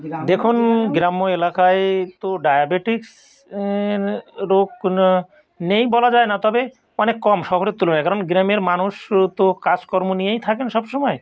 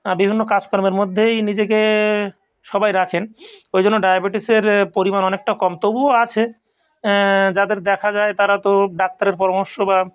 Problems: background sounds at intervals